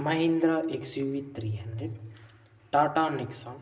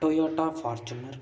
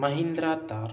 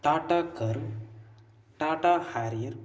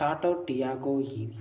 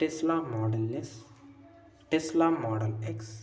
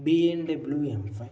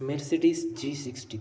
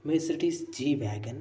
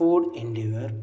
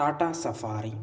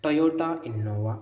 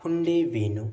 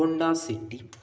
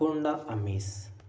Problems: constant background noise